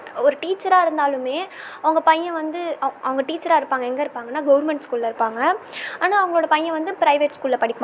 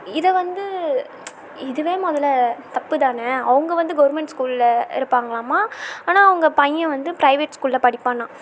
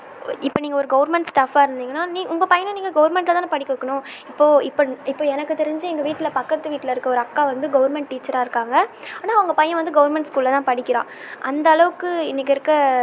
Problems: none marked